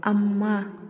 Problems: background conversations at intervals, low volume